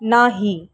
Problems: background sounds at intervals